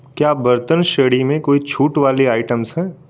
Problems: constant background noise